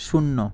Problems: low volume